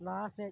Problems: low volume